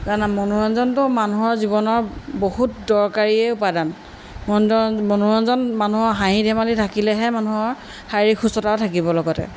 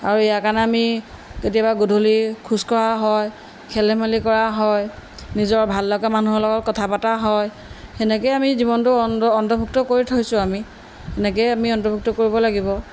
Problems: none marked